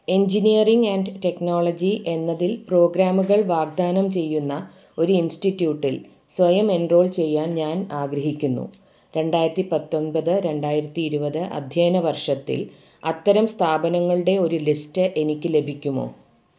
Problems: background sounds at intervals